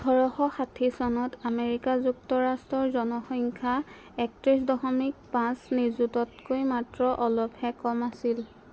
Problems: constant background noise